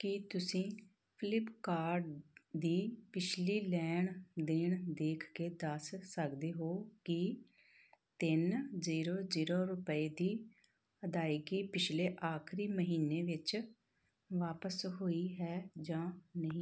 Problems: none marked